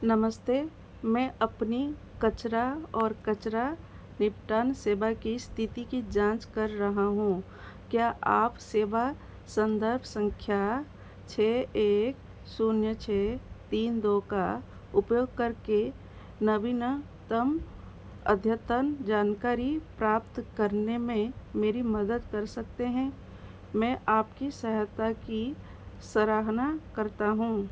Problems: constant background noise